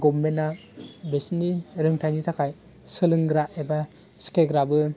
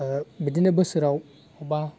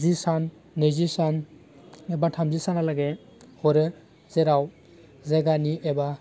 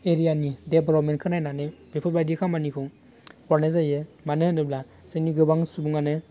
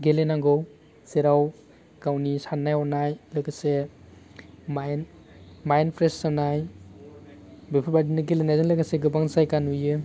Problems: constant background noise